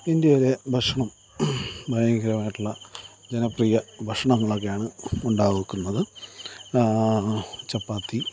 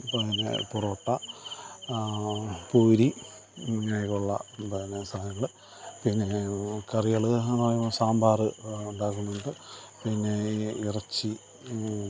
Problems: background sounds at intervals, low volume